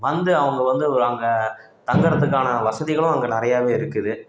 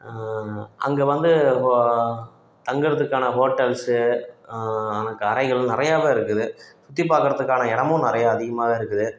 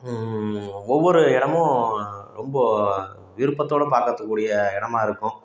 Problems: none marked